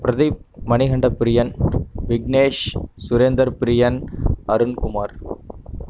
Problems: constant background noise